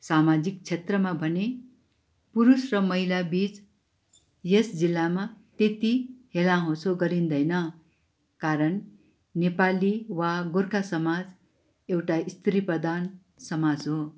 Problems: background sounds at intervals